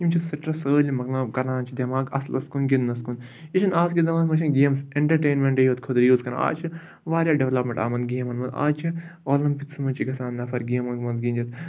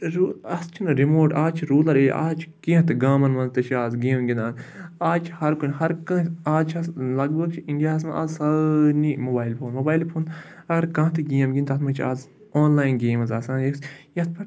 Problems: background sounds at intervals